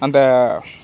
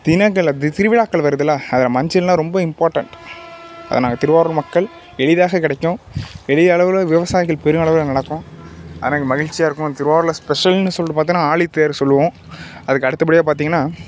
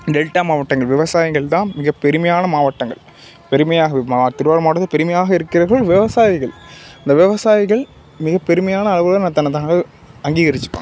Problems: background sounds at intervals